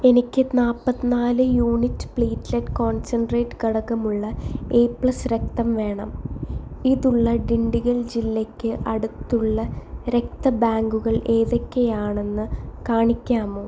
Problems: background sounds at intervals, echo